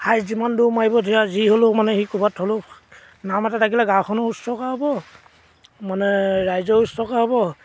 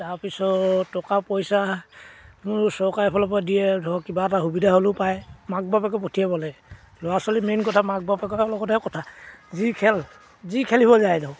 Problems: background sounds at intervals